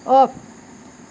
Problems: none marked